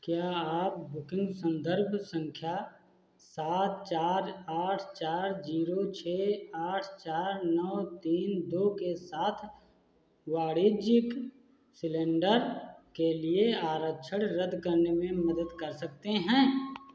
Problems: constant background noise